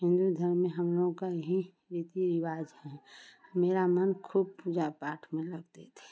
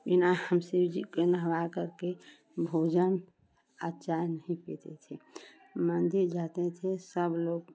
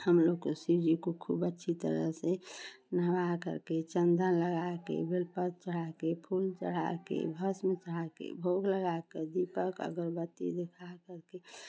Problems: none marked